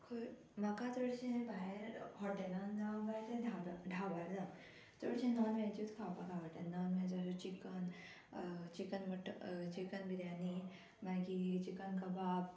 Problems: constant background noise